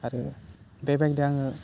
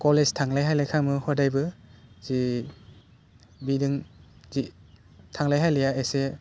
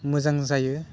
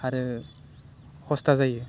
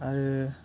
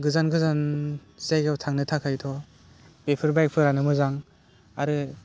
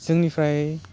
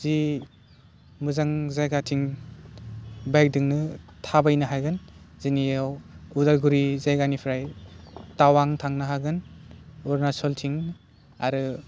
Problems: constant background noise